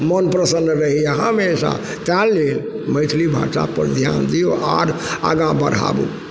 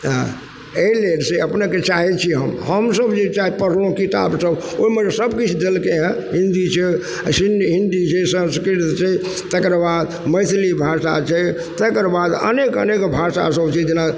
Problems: background sounds at intervals